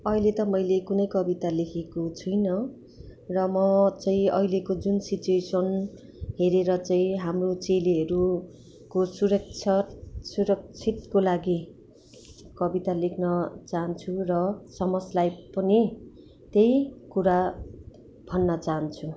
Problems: constant background noise